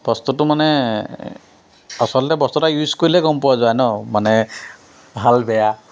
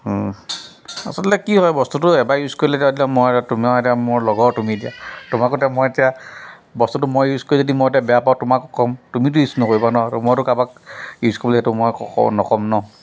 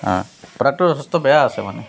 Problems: constant background noise